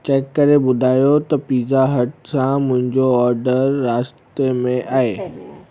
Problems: constant background noise